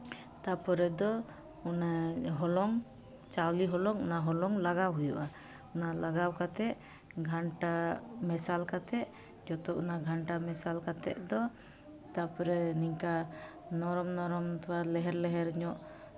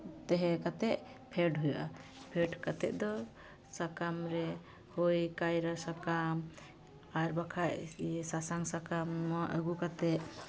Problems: constant background noise, continuous background conversations